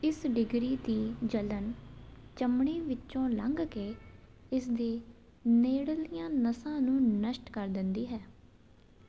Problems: none marked